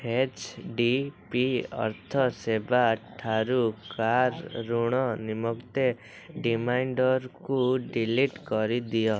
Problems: constant background noise